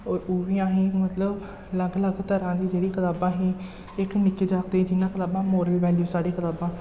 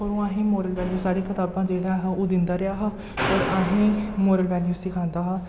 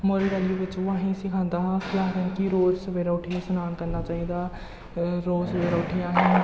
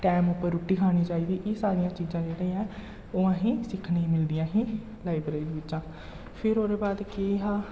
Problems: low volume